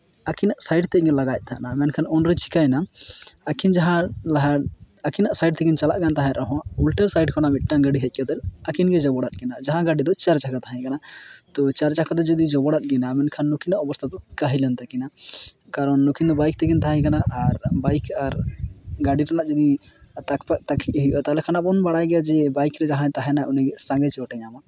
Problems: none marked